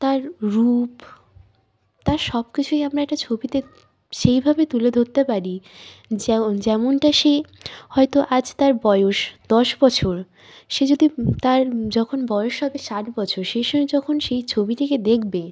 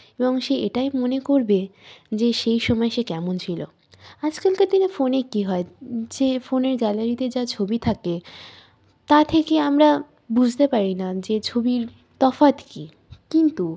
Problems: none marked